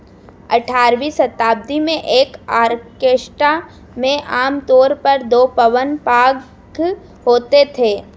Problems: background sounds at intervals